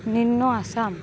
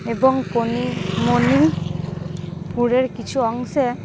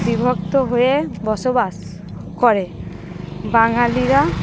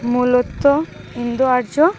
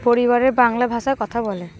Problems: constant background noise